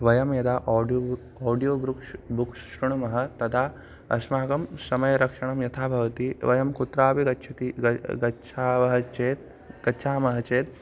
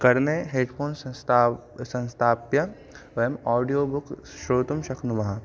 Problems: constant background noise